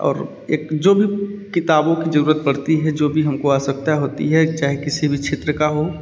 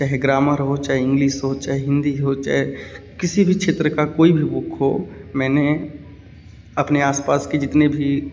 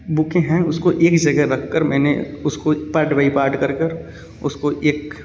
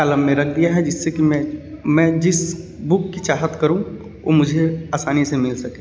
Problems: background sounds at intervals